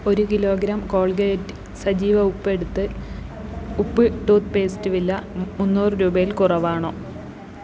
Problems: constant background noise